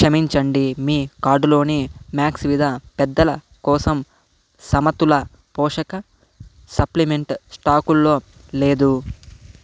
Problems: constant background noise